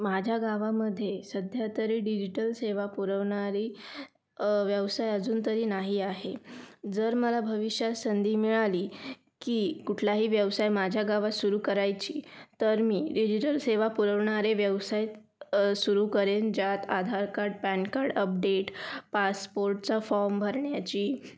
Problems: background sounds at intervals